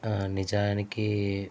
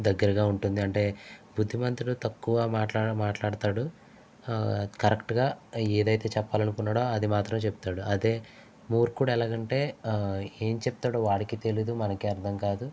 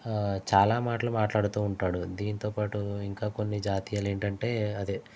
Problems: constant background noise